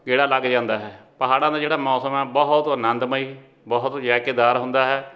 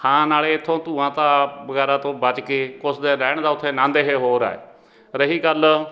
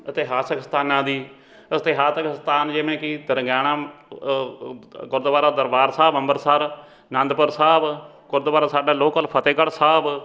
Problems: background conversations at intervals